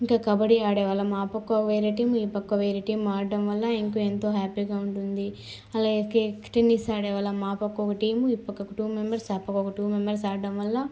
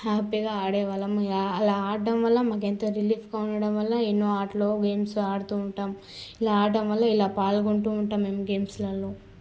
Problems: constant background noise